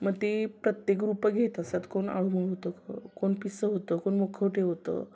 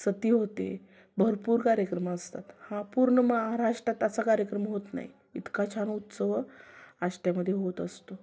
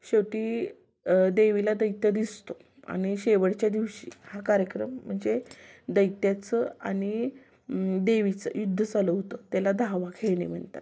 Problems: constant background noise, continuous background conversations